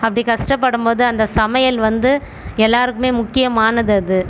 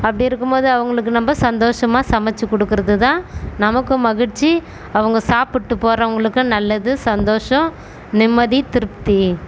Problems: constant background noise